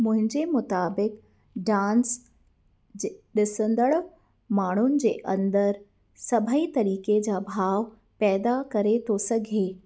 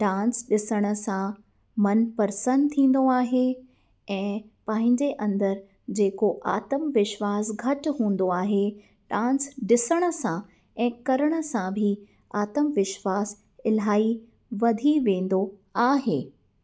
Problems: none marked